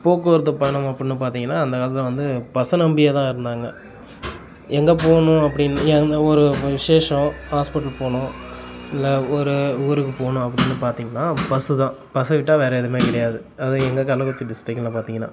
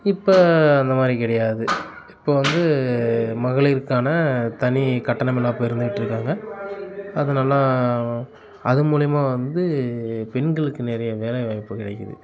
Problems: constant background noise